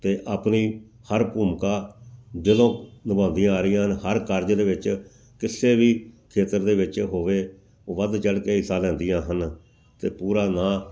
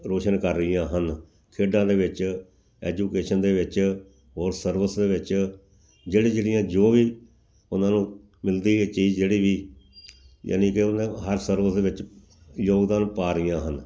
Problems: background sounds at intervals